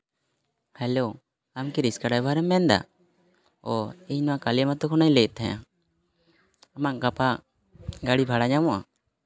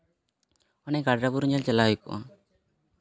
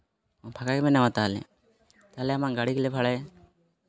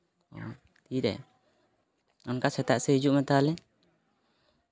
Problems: constant background noise